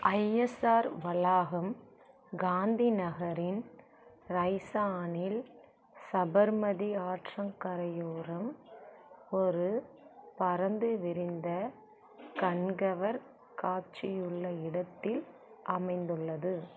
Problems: constant background noise, low volume